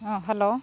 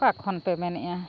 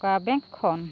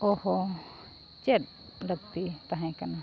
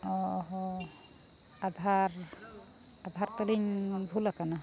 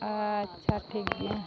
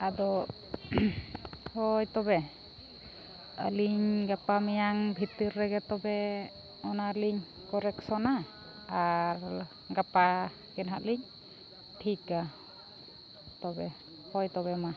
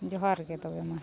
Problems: constant background noise, continuous background conversations, low volume